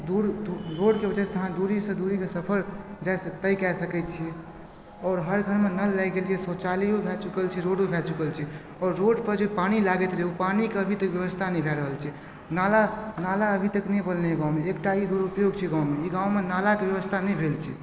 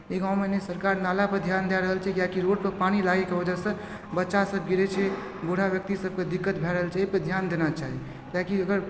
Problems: background sounds at intervals